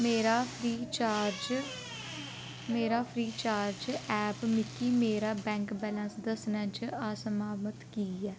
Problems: background sounds at intervals